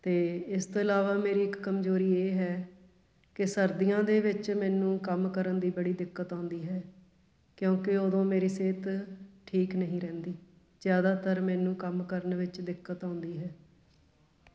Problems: constant background noise